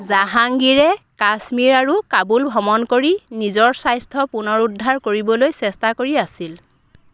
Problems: none marked